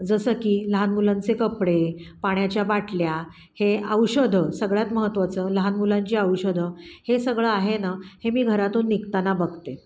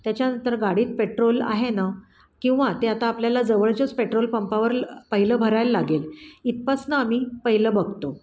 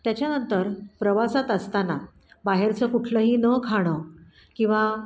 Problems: none marked